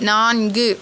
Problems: constant background noise